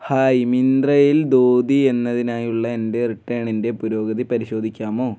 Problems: none marked